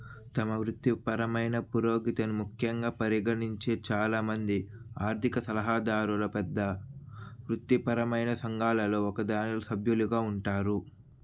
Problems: constant background noise